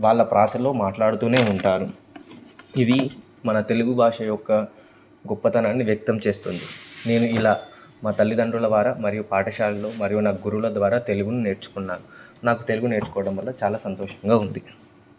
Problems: none marked